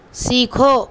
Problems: constant background noise